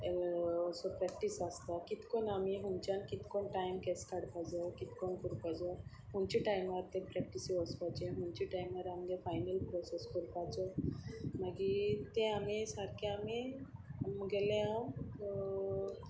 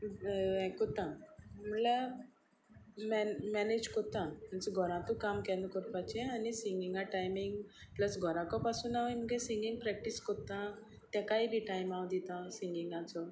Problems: none marked